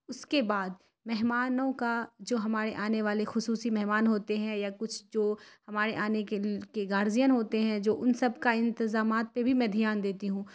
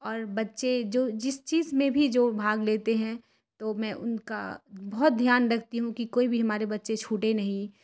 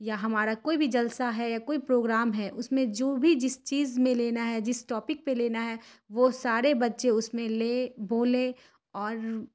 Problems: none marked